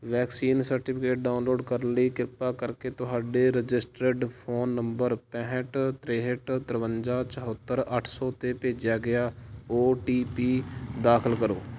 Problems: background sounds at intervals